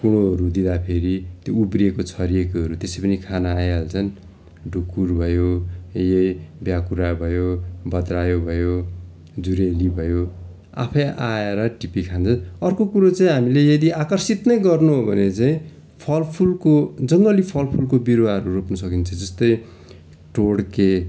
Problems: constant background noise